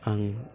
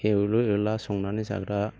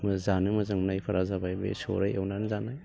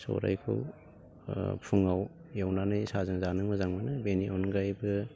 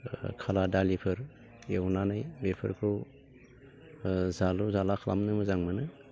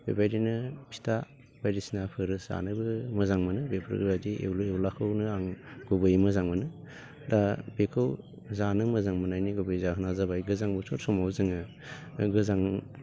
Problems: none marked